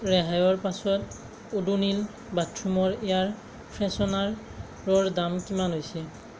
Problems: constant background noise